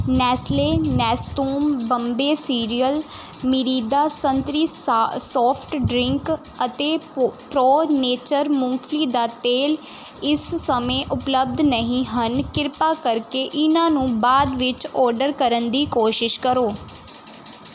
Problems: none marked